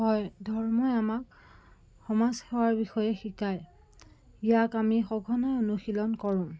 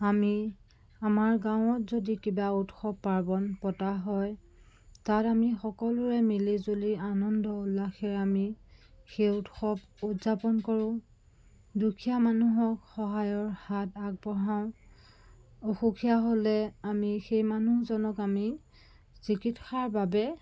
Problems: constant background noise